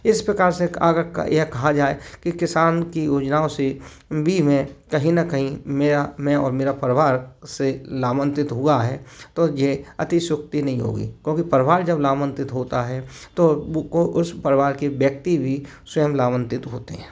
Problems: constant background noise